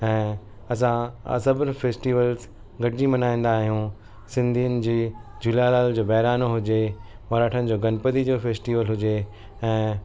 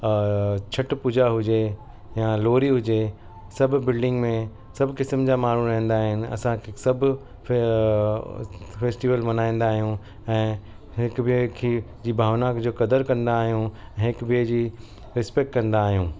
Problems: constant background noise, continuous background conversations